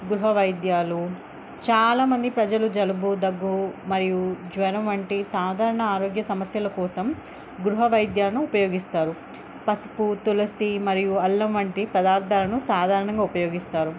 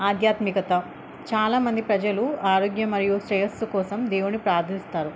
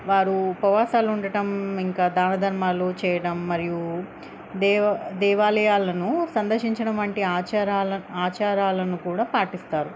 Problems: none marked